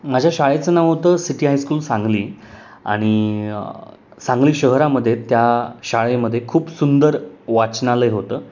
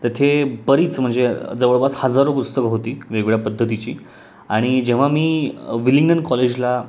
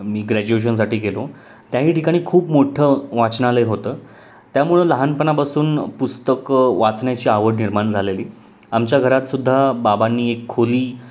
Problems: constant background noise